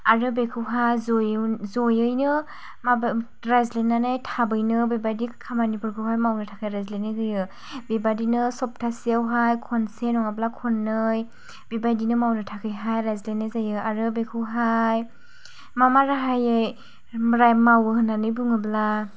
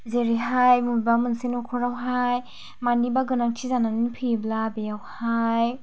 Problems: low volume